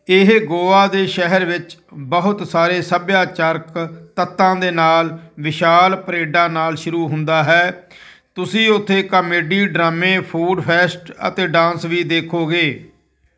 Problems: none marked